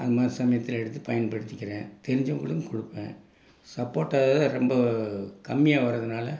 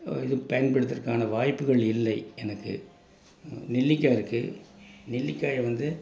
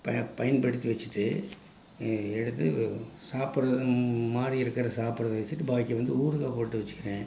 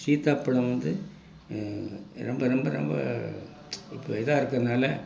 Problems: none marked